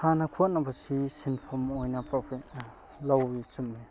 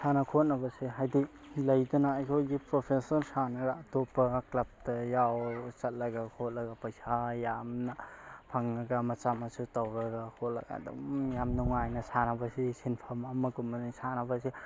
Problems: background sounds at intervals